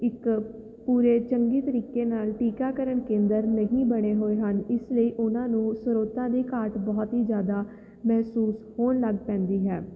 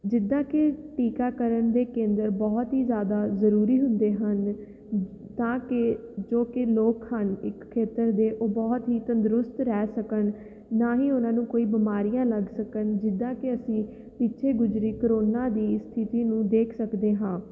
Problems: none marked